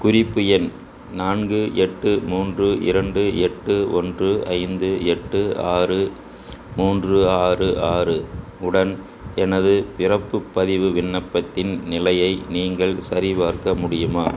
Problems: constant background noise, background conversations at intervals